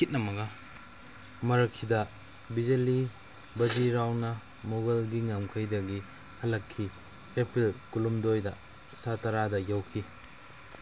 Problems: background conversations at intervals